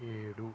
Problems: constant background noise